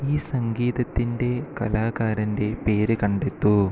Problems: constant background noise